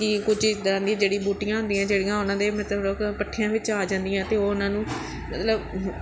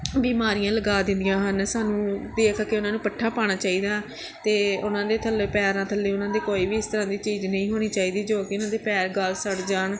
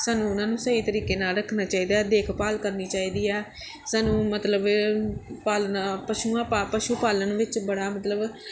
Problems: background sounds at intervals, background conversations at intervals